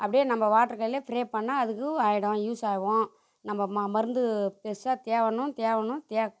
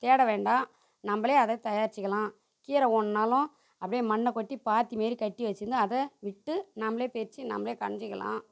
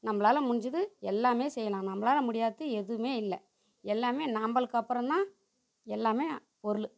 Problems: none marked